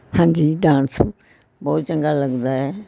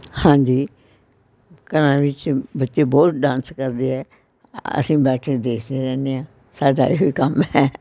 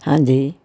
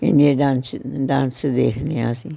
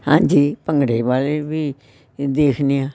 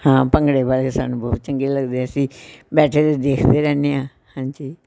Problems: constant background noise, continuous background conversations